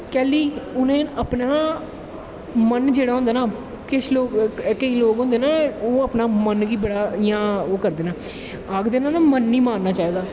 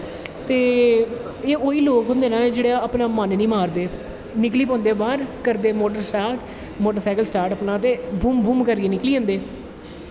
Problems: constant background noise, echo